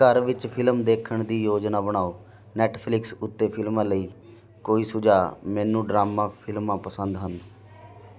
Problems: continuous background conversations